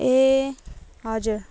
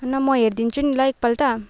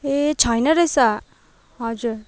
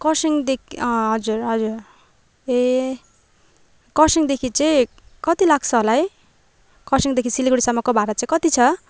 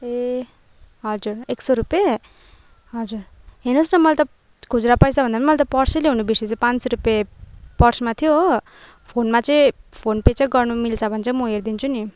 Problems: background sounds at intervals